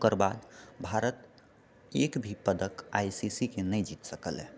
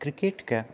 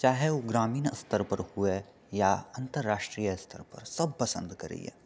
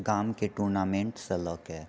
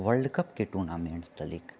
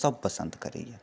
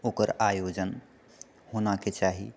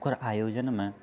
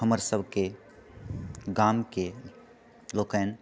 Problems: none marked